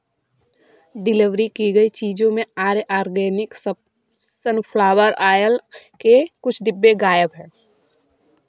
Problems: background conversations at intervals